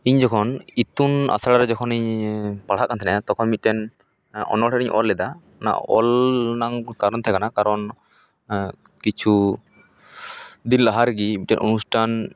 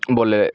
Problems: background conversations at intervals